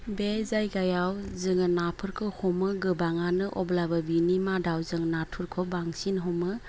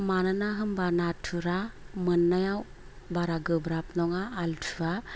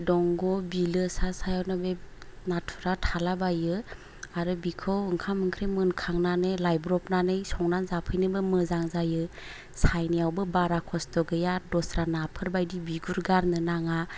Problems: none marked